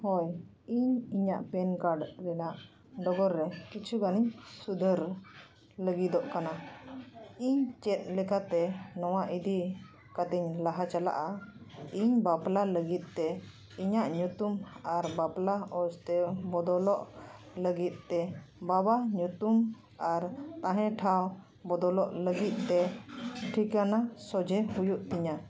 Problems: none marked